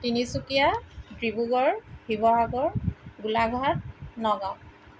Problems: none marked